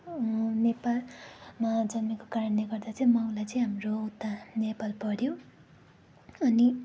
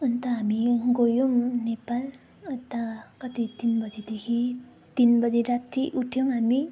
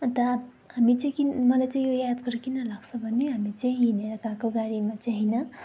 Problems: constant background noise